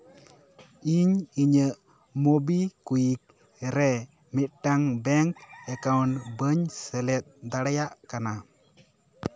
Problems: background sounds at intervals, continuous background conversations